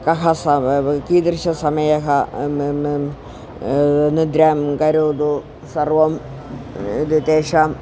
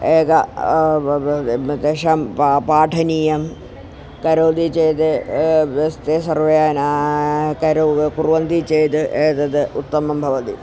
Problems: none marked